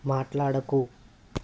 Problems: none marked